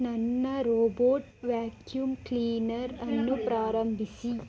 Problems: background conversations at intervals